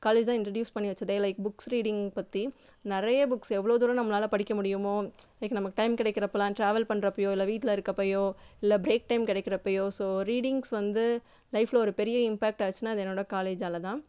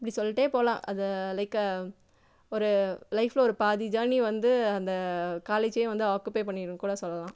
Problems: none marked